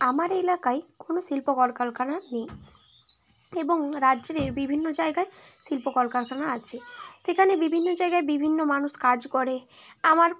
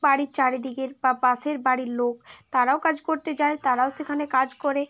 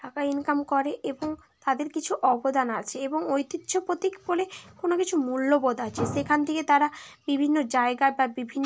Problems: constant background noise, background conversations at intervals